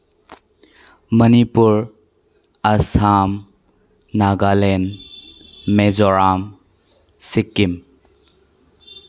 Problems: background sounds at intervals